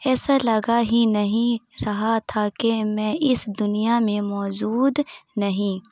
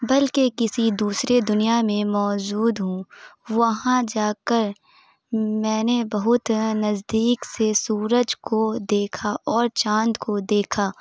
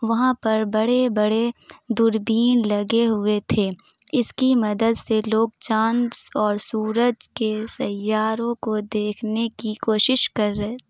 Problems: none marked